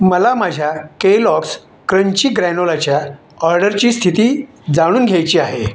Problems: none marked